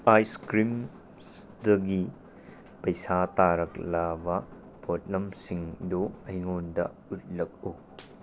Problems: constant background noise